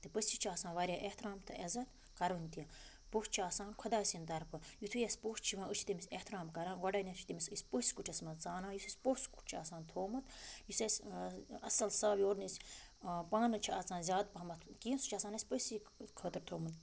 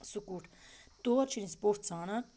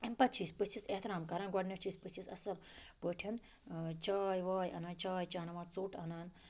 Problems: background sounds at intervals